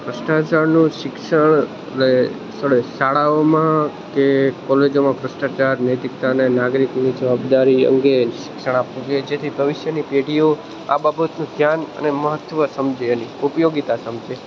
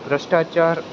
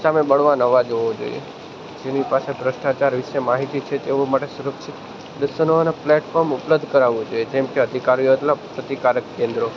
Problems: none marked